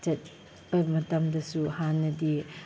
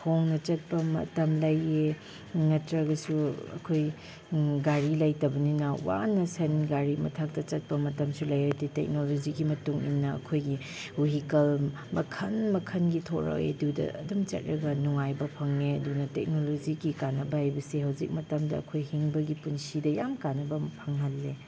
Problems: none marked